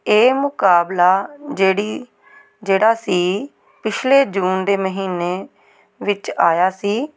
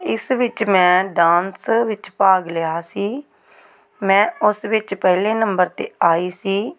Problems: background conversations at intervals